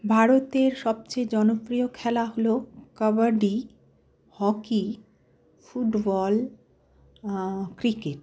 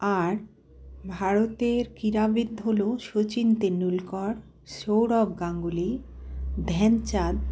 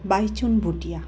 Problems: none marked